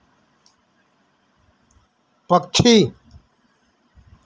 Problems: none marked